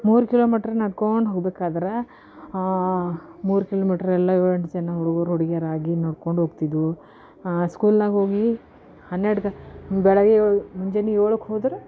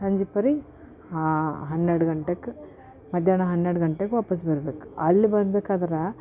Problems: none marked